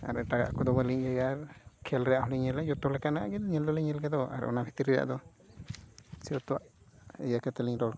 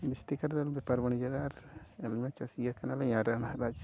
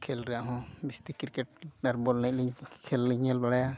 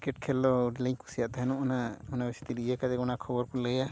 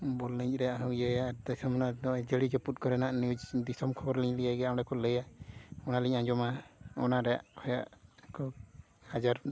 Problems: background sounds at intervals